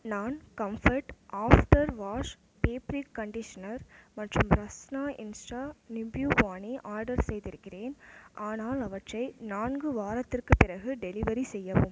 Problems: none marked